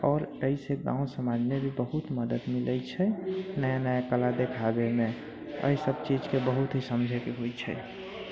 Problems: background sounds at intervals, low volume